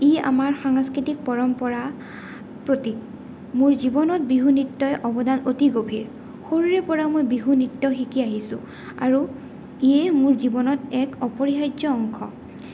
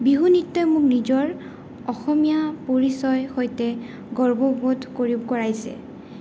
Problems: none marked